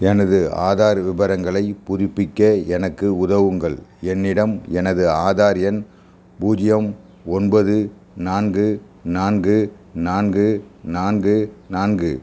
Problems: constant background noise